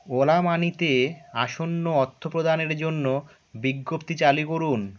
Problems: none marked